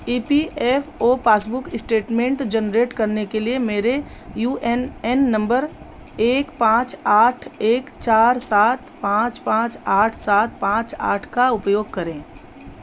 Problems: constant background noise